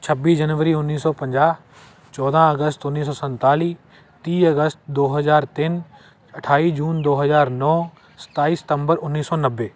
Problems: constant background noise